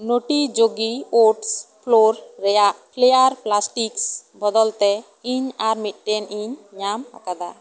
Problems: none marked